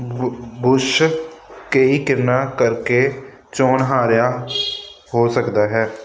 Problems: constant background noise